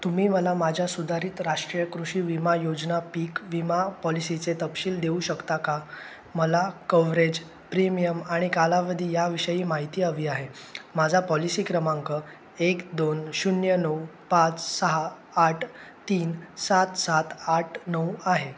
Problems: constant background noise